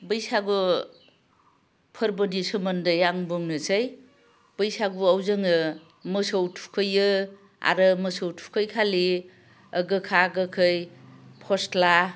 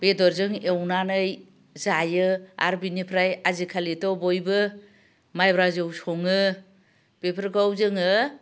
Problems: low volume